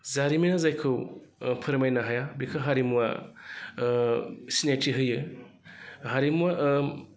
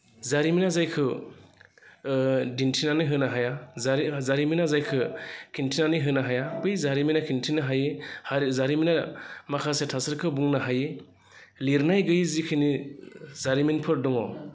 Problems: constant background noise